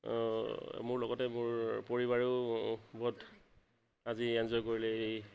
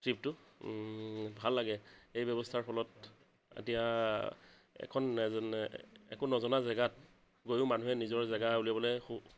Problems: constant background noise